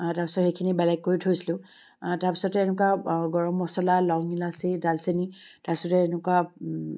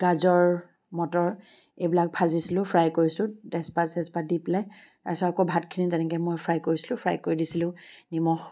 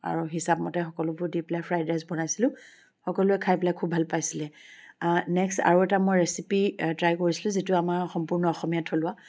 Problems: constant background noise